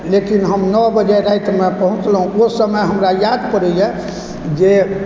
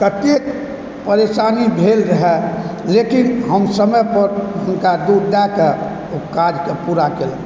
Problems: constant background noise